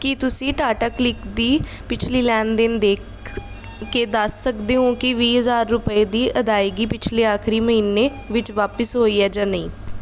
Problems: none marked